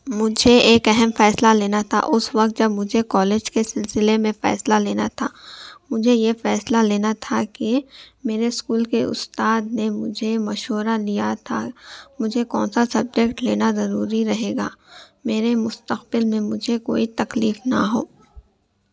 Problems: none marked